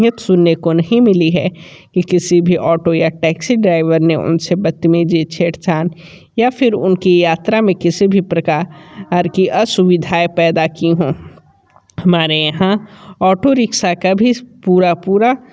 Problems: continuous background conversations